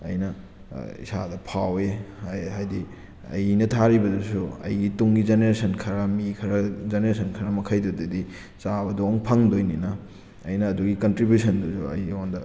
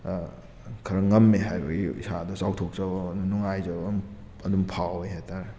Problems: background sounds at intervals